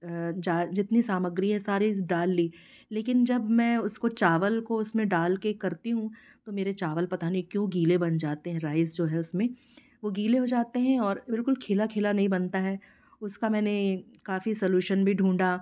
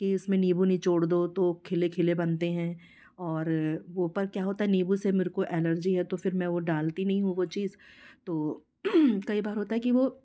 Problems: background sounds at intervals